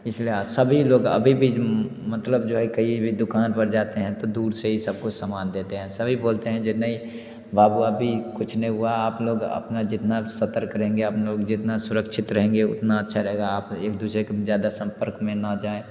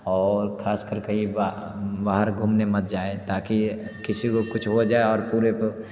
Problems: none marked